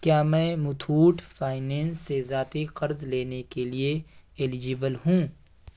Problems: none marked